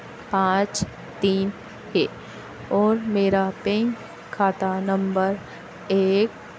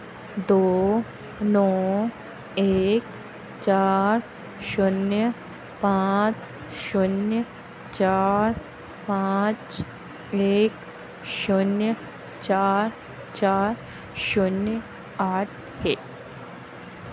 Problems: none marked